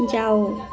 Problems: continuous background conversations